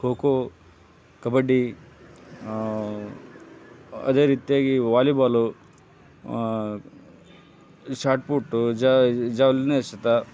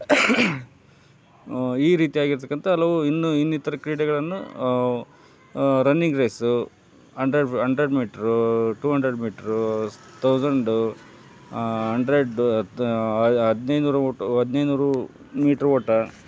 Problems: background conversations at intervals